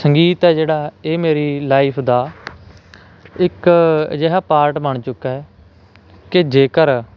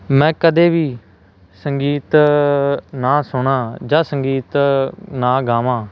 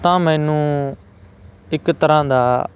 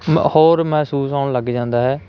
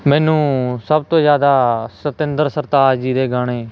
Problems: none marked